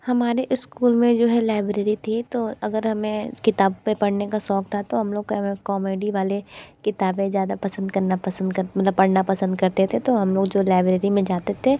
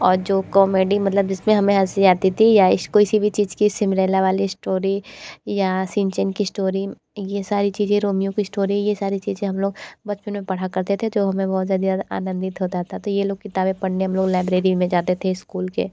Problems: none marked